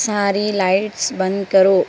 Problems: constant background noise